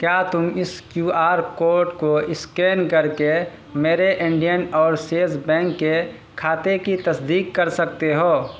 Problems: constant background noise